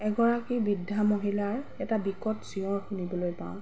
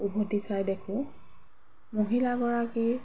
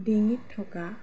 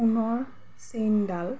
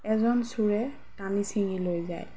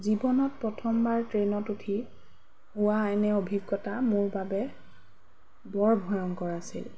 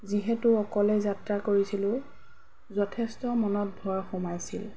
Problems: background sounds at intervals